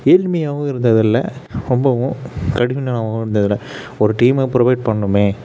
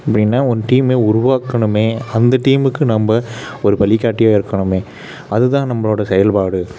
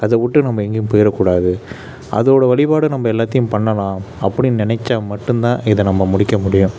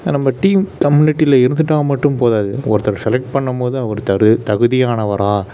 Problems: constant background noise